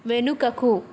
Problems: constant background noise